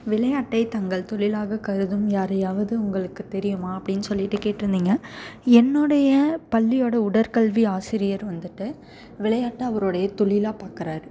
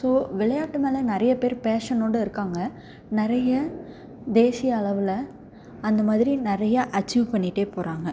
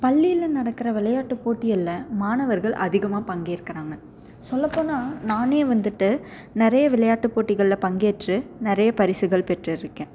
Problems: none marked